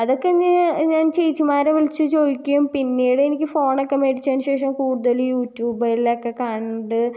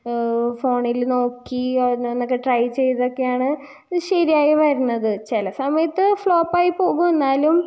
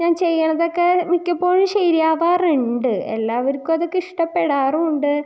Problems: none marked